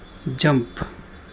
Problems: constant background noise